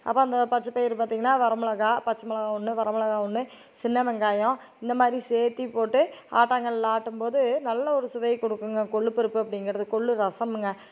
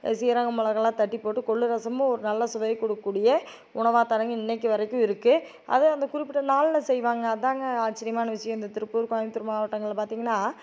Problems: none marked